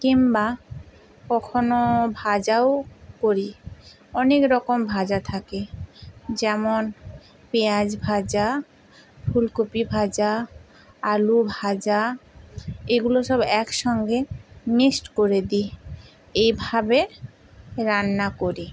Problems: constant background noise